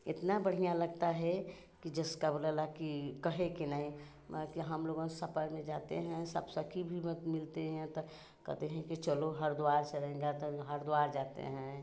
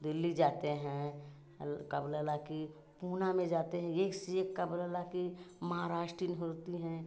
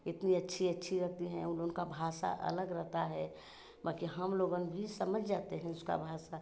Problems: none marked